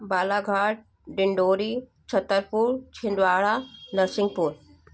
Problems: constant background noise